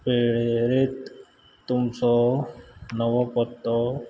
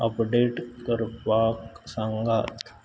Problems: background sounds at intervals